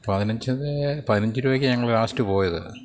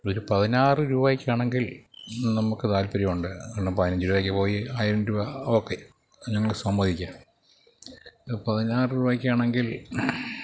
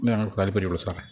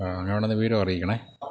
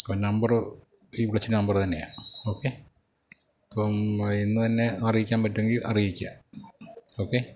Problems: low volume